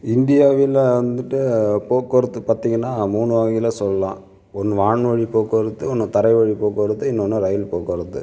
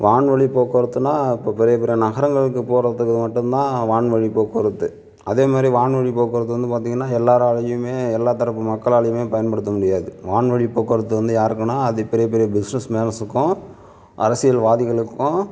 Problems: none marked